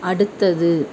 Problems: constant background noise